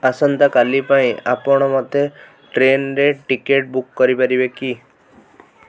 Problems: background conversations at intervals